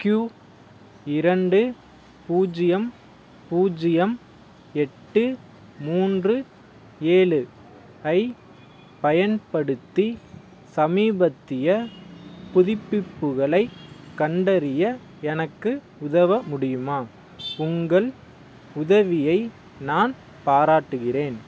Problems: background sounds at intervals